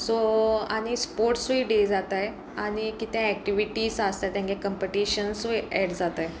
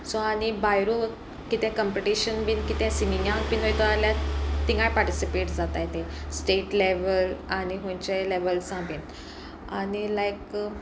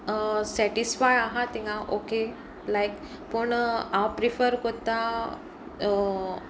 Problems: background sounds at intervals